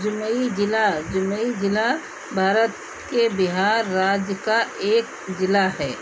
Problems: constant background noise